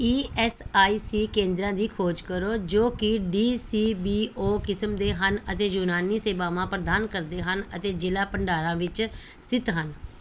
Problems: background sounds at intervals